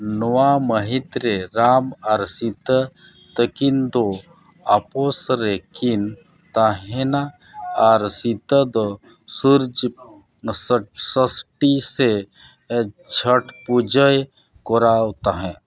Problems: background sounds at intervals